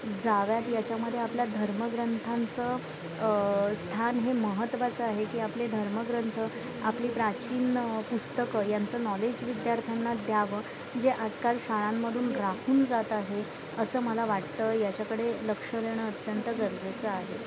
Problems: constant background noise, continuous background conversations